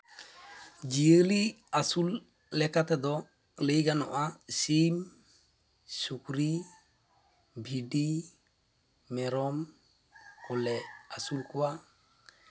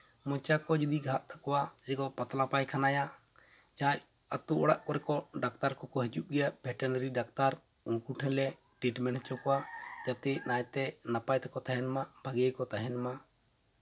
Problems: constant background noise, background conversations at intervals